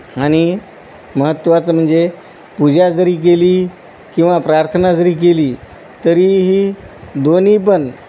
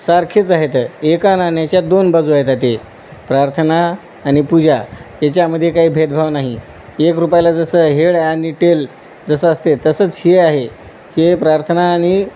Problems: none marked